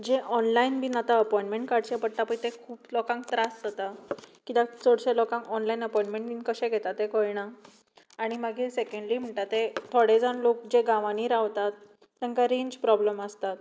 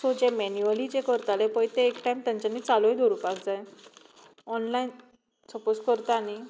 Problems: background sounds at intervals